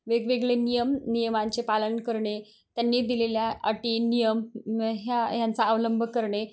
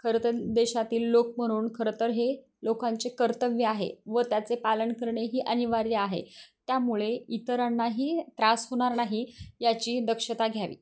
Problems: none marked